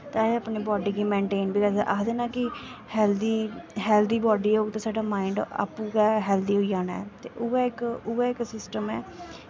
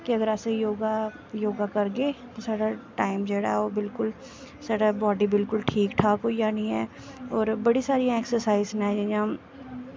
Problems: constant background noise